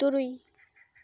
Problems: none marked